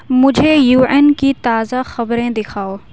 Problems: none marked